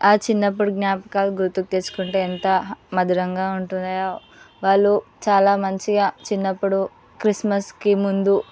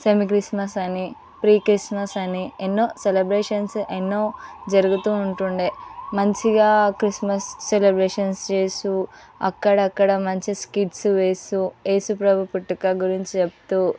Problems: background sounds at intervals, background conversations at intervals